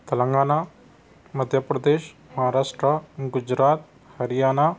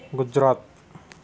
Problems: background sounds at intervals